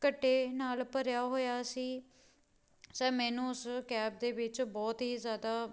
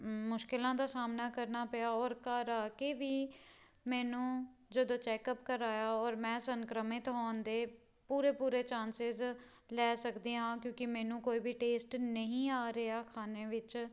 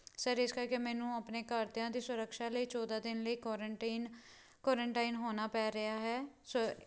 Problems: none marked